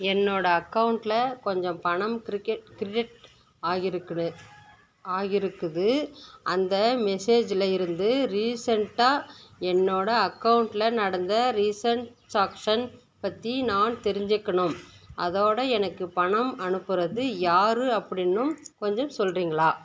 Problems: constant background noise